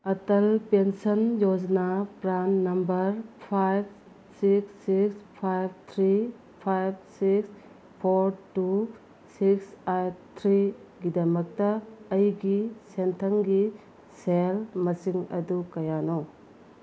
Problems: low volume